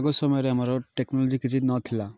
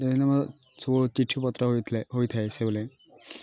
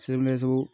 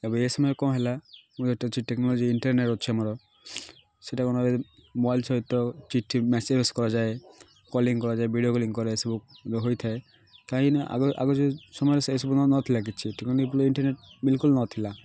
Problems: none marked